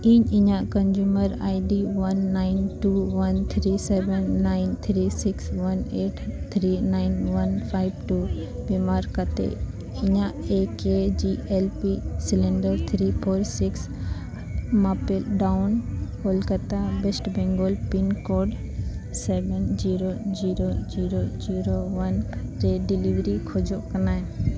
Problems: constant background noise